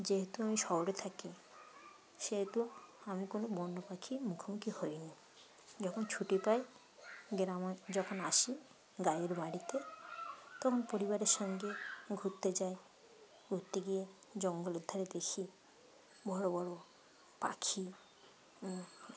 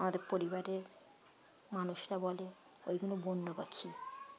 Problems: background conversations at intervals